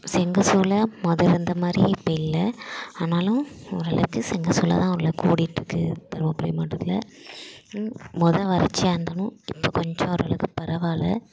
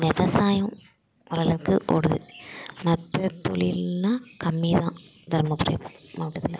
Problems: constant background noise